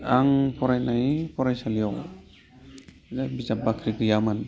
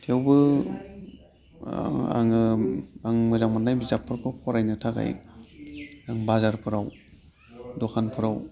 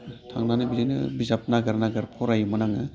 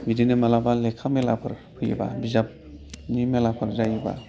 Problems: low volume